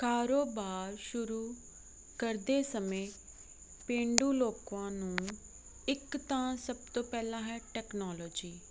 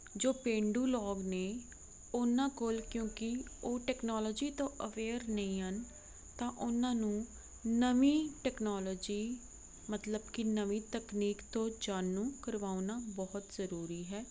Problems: none marked